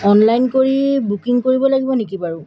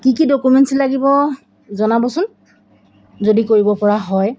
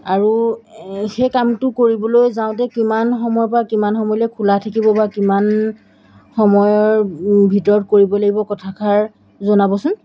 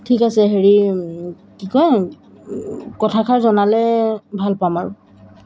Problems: background sounds at intervals